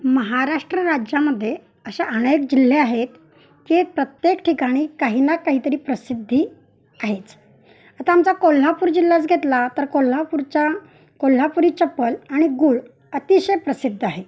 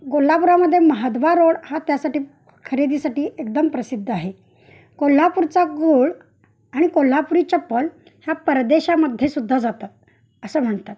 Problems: none marked